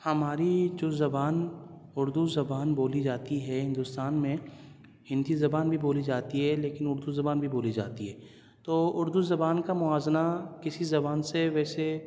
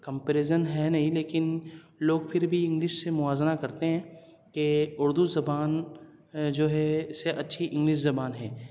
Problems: none marked